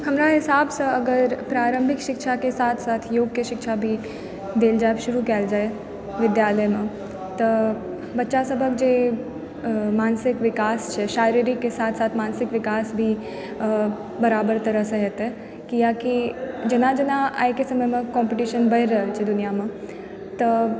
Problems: background sounds at intervals, background conversations at intervals